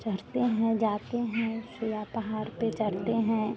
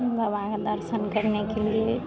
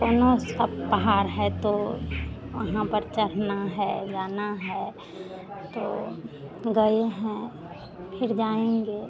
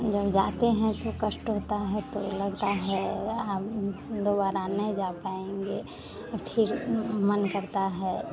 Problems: constant background noise, continuous background conversations, low volume